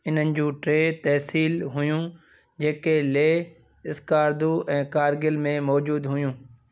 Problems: none marked